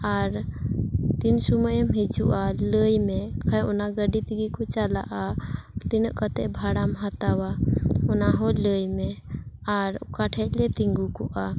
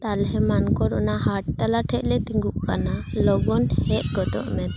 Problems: background conversations at intervals